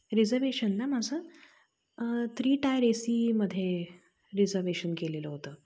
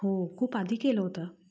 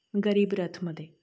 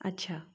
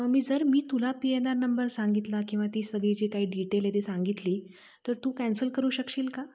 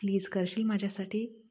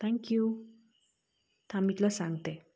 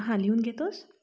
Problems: none marked